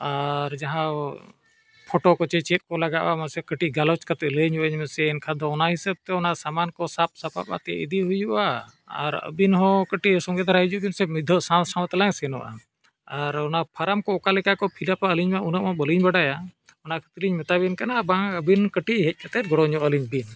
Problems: none marked